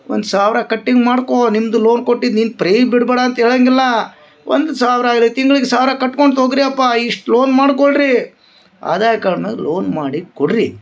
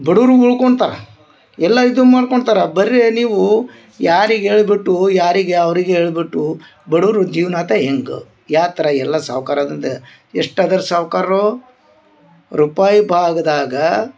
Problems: background sounds at intervals